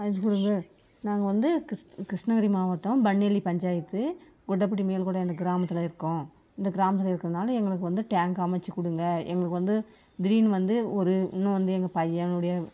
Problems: background sounds at intervals